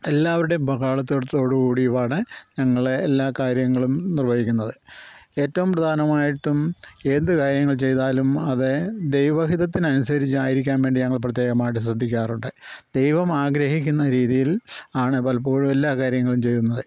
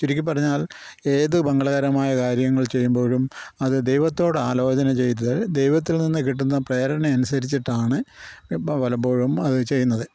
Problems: none marked